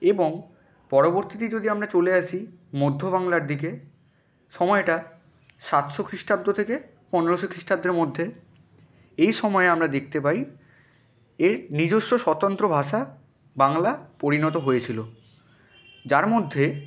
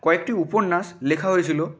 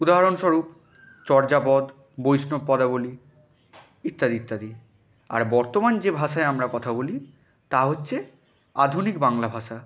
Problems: none marked